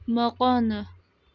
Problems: background sounds at intervals